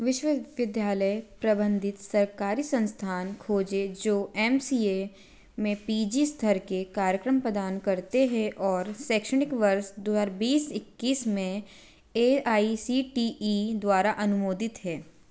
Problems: constant background noise